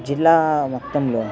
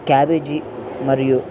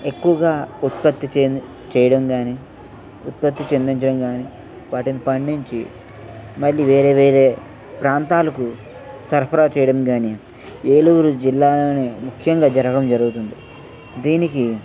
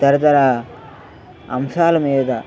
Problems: constant background noise, background conversations at intervals